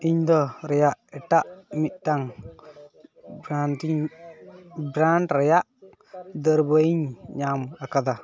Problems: background sounds at intervals